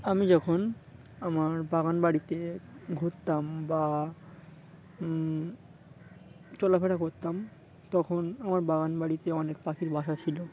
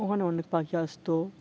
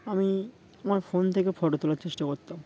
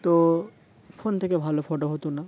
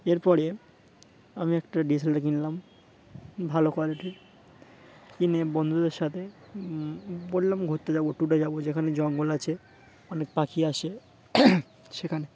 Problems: constant background noise, continuous background conversations